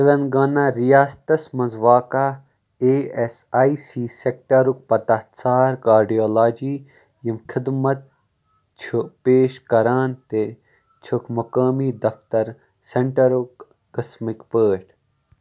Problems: background sounds at intervals